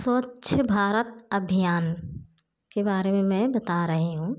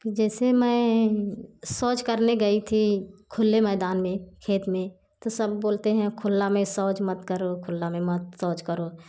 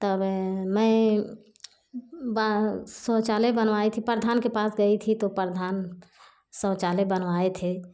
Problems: none marked